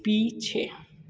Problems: none marked